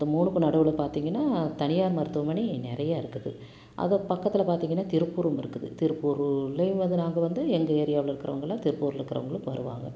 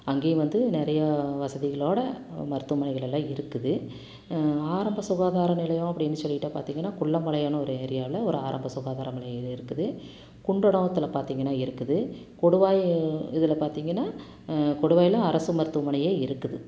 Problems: constant background noise